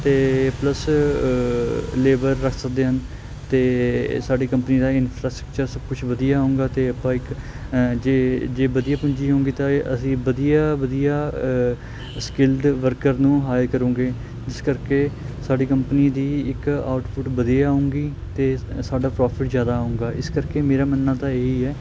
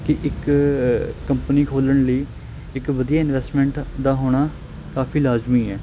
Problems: constant background noise